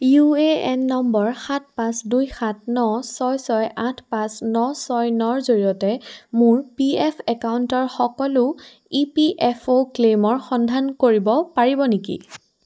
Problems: background sounds at intervals